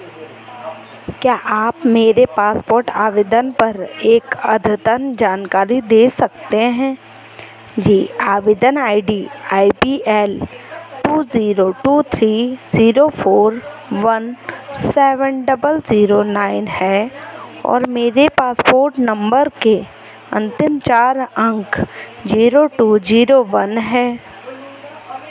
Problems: constant background noise